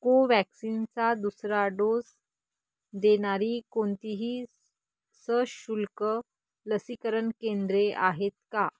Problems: none marked